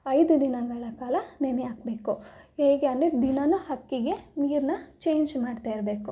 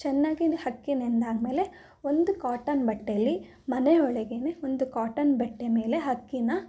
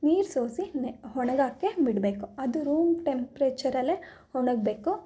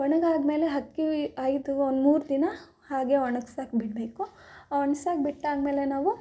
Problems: none marked